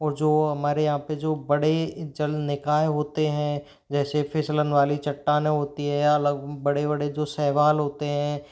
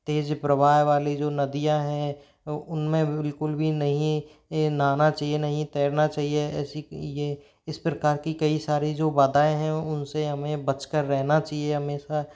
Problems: background sounds at intervals